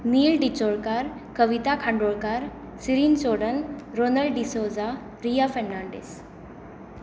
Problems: constant background noise